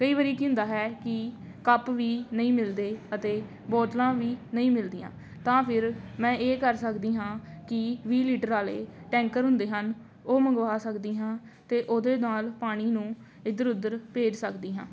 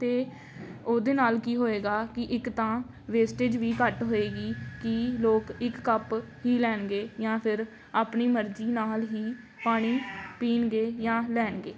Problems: none marked